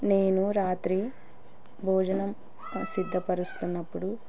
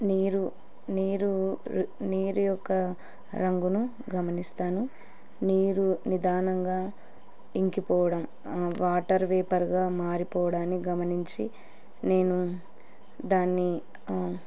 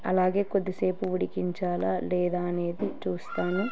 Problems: continuous background conversations